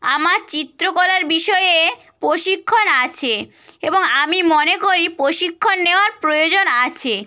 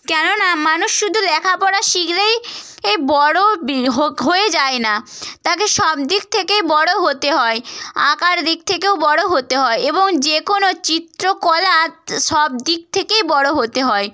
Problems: none marked